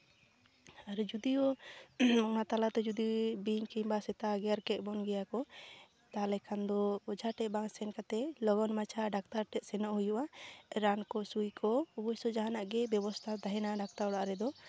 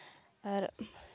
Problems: constant background noise